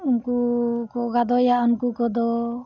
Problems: background sounds at intervals